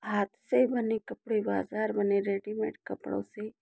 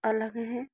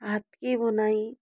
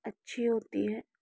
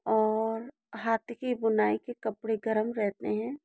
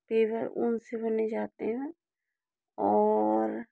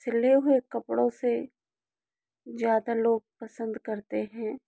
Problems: none marked